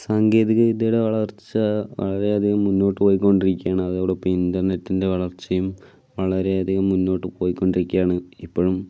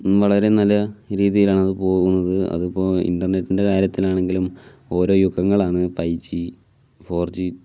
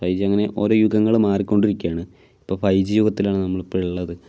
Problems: none marked